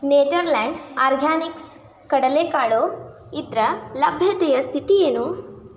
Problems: background conversations at intervals